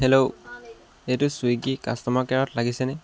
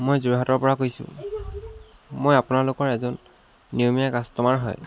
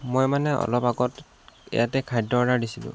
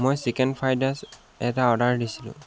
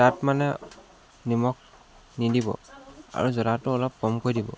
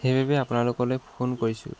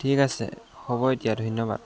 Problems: constant background noise